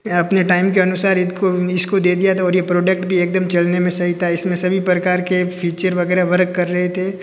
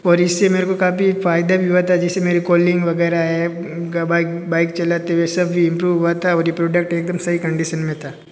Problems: constant background noise